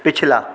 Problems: constant background noise